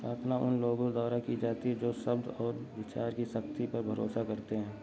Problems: none marked